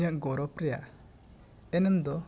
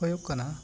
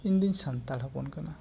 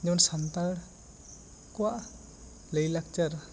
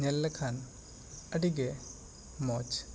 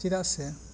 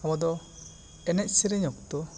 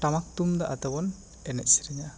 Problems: constant background noise